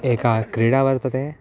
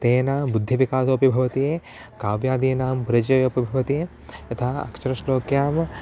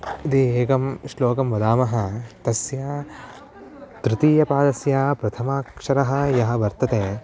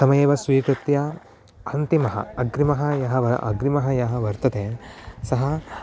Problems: background sounds at intervals